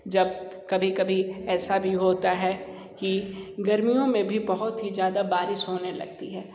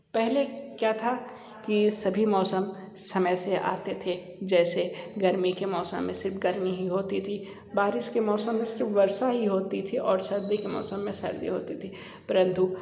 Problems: background sounds at intervals